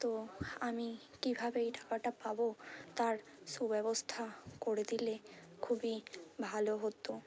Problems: constant background noise, continuous background conversations